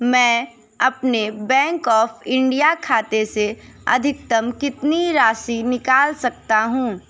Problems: constant background noise, background conversations at intervals